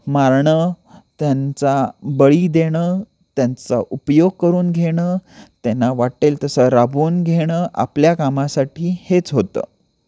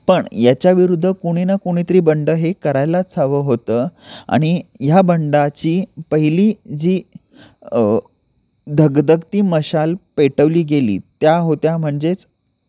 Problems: none marked